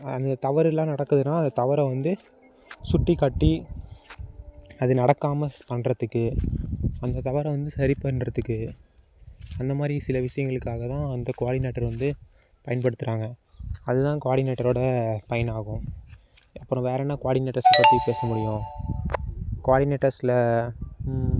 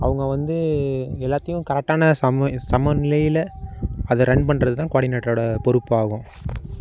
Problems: background sounds at intervals